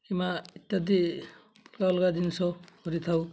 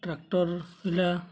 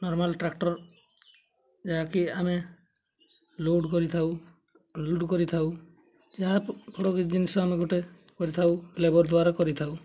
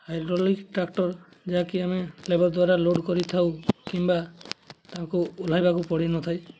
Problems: none marked